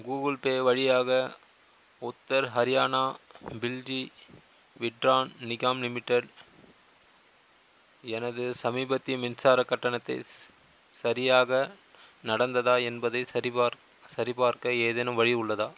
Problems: constant background noise